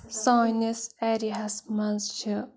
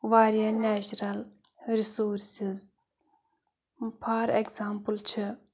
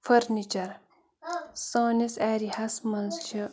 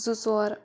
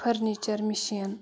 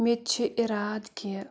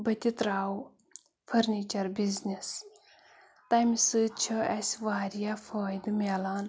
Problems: background sounds at intervals, background conversations at intervals